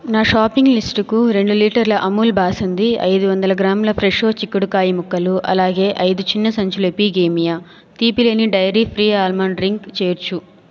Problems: continuous background conversations